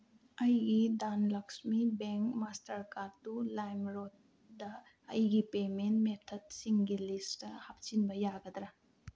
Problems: low volume